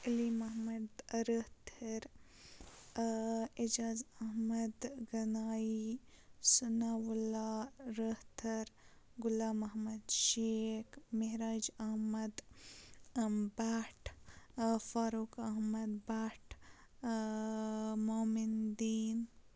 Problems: constant background noise, low volume